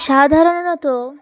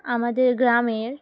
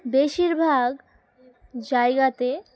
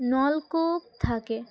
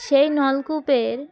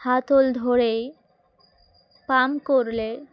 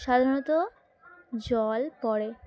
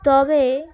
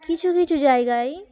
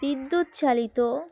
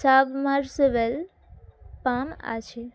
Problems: background sounds at intervals, continuous background conversations